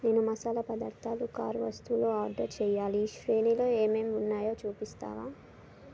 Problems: constant background noise